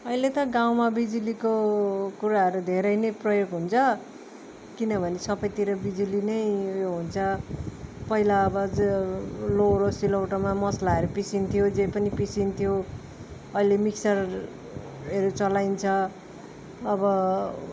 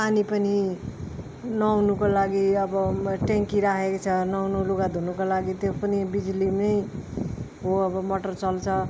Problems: background sounds at intervals